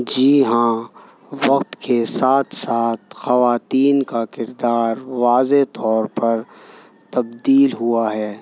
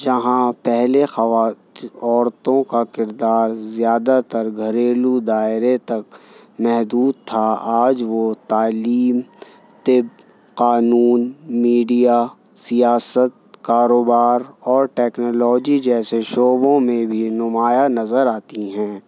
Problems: none marked